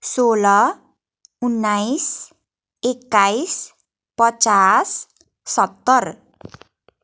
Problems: none marked